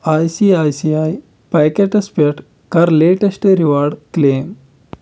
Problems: constant background noise